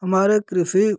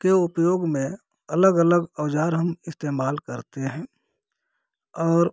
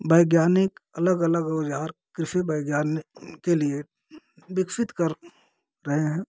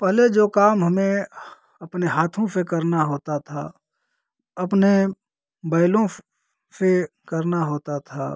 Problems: none marked